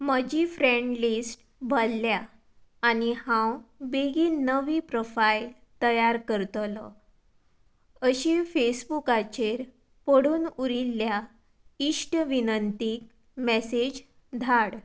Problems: none marked